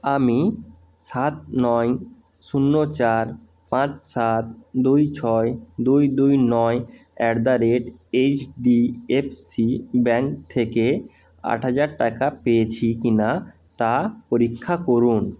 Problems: constant background noise